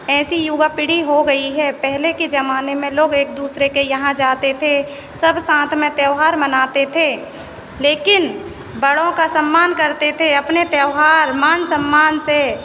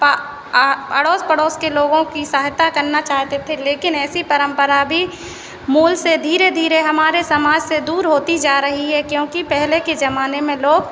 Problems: constant background noise